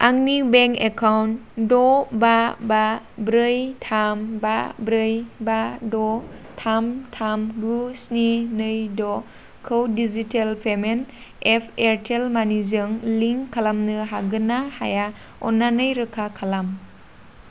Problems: constant background noise